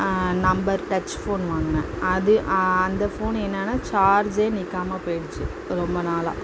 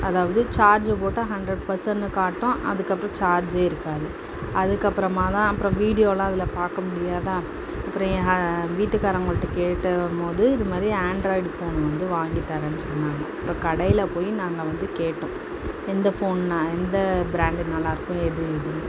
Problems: constant background noise